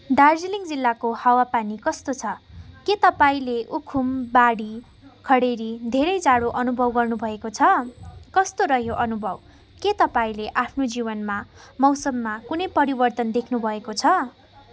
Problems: background sounds at intervals, background conversations at intervals